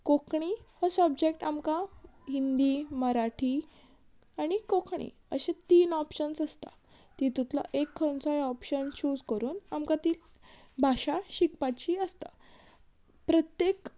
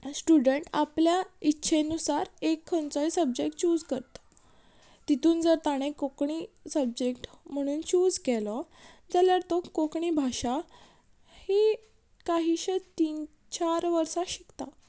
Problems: background sounds at intervals